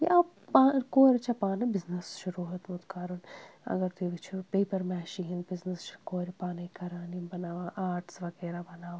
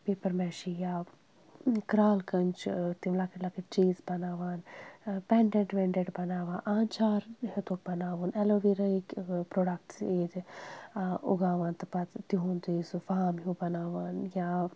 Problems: background sounds at intervals